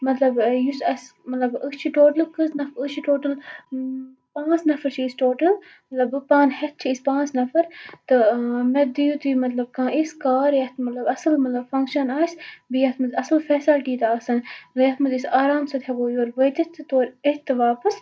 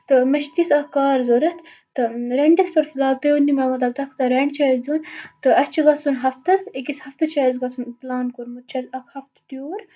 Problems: constant background noise, low volume